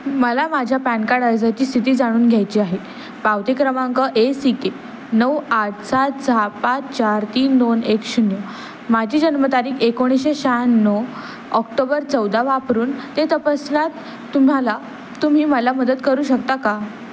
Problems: constant background noise